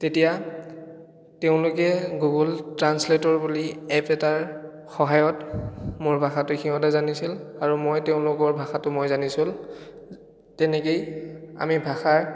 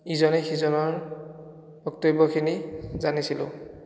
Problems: echo